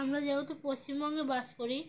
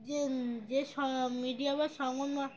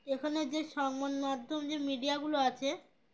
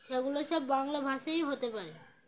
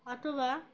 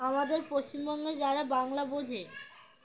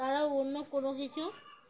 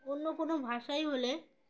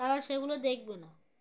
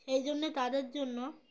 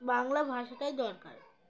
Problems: none marked